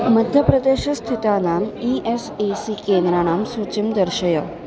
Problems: constant background noise